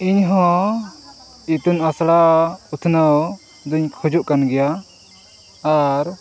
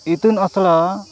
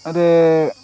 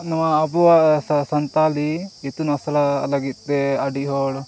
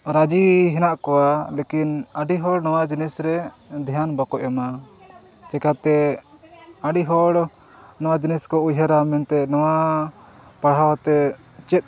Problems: background sounds at intervals, background conversations at intervals